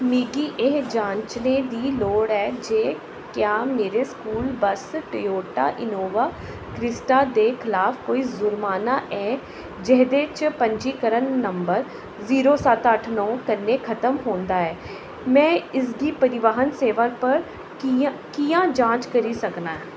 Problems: constant background noise, echo